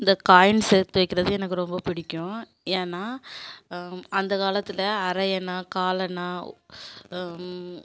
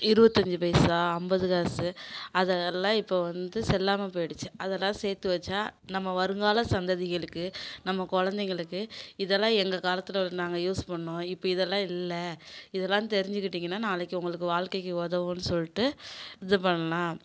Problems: constant background noise